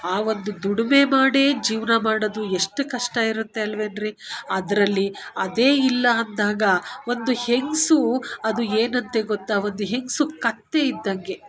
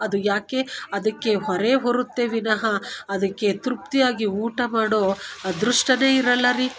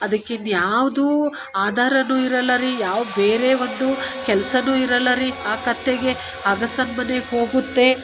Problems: none marked